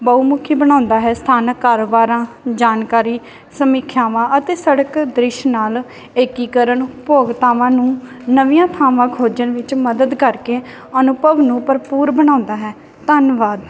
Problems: none marked